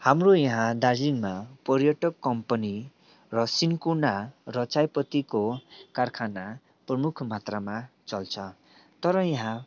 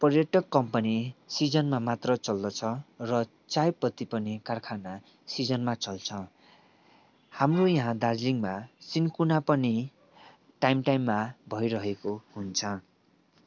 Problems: background sounds at intervals